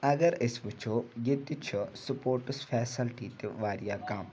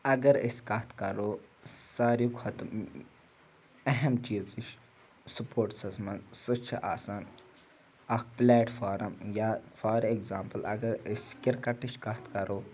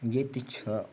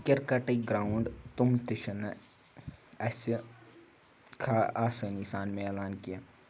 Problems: background sounds at intervals